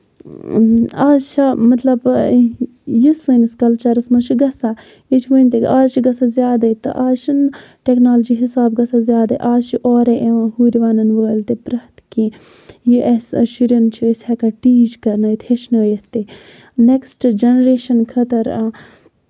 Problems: background sounds at intervals